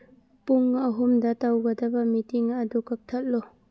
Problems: none marked